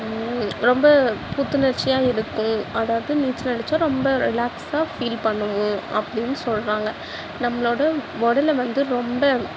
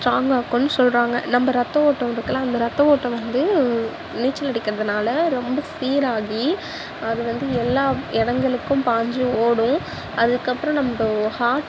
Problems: constant background noise